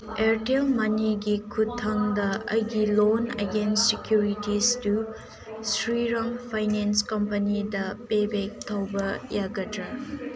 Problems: background sounds at intervals, background conversations at intervals